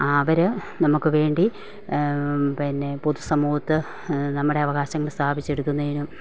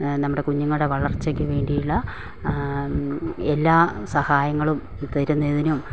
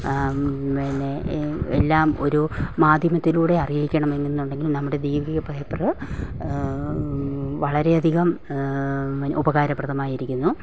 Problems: none marked